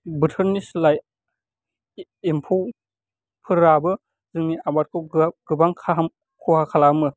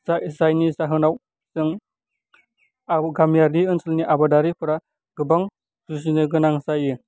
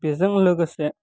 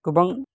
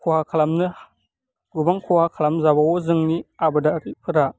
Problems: none marked